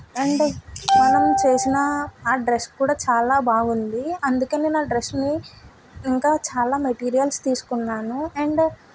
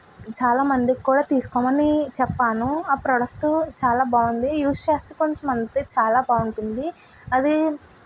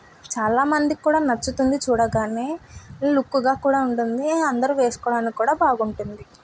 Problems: background sounds at intervals